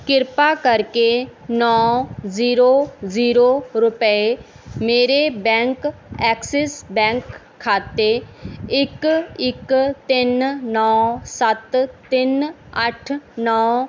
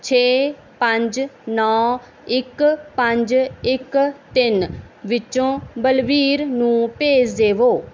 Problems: background sounds at intervals